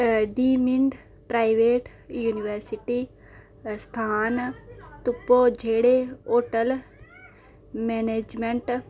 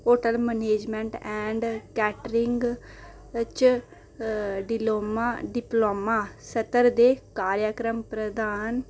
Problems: none marked